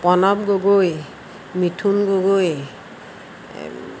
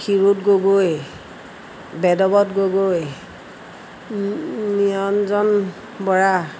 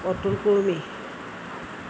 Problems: constant background noise, background conversations at intervals